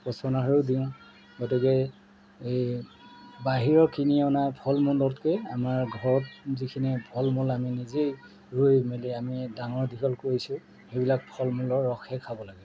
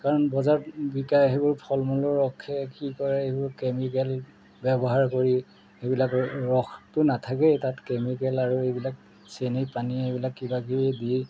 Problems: none marked